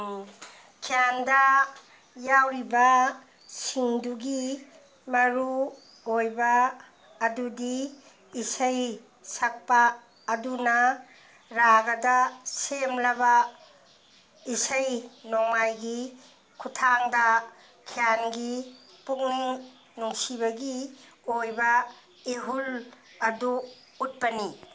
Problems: none marked